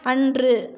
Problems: continuous background conversations